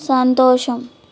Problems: constant background noise